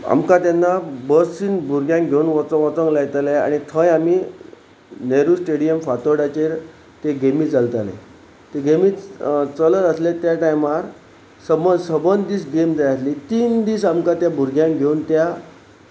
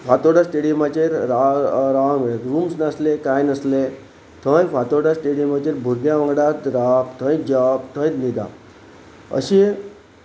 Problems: none marked